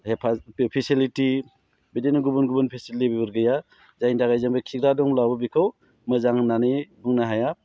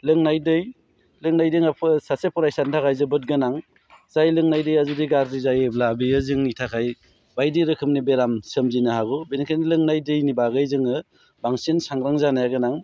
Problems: low volume